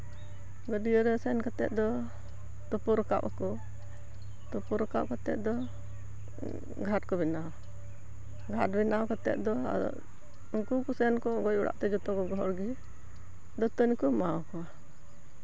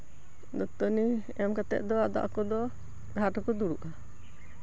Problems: none marked